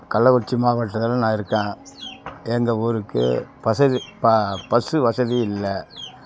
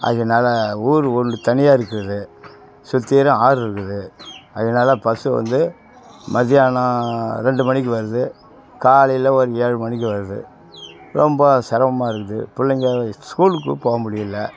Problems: constant background noise